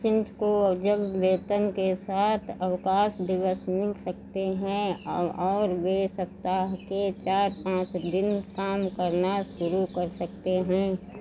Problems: none marked